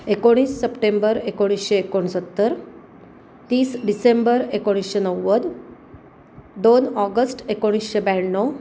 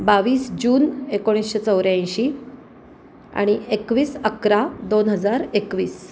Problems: constant background noise